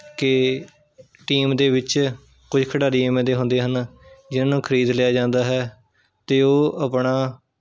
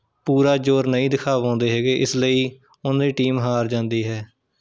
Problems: none marked